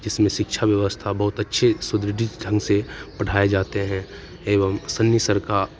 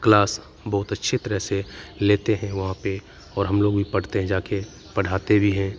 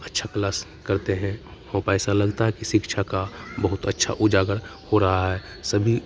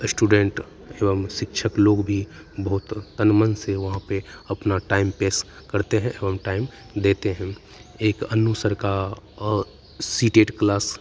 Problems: constant background noise